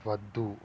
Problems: constant background noise